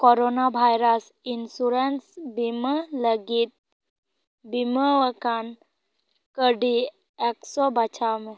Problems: none marked